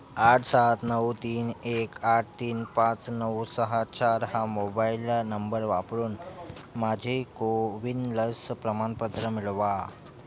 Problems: constant background noise, continuous background conversations